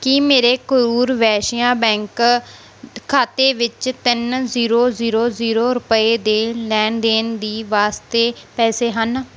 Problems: none marked